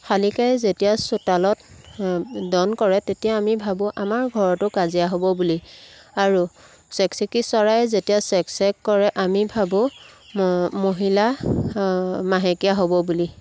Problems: background sounds at intervals